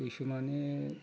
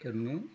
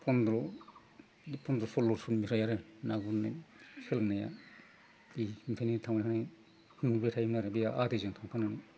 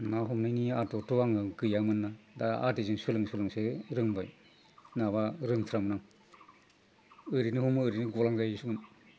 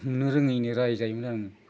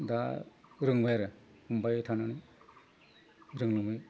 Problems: constant background noise